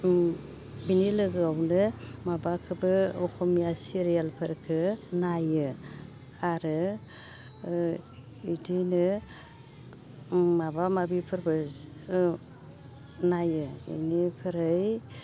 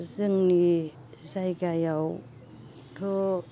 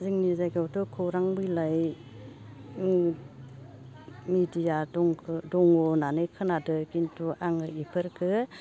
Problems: constant background noise